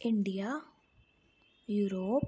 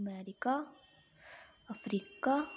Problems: background sounds at intervals